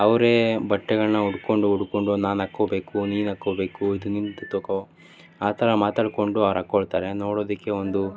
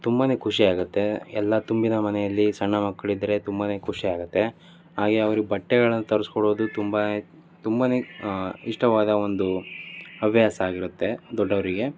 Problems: continuous background conversations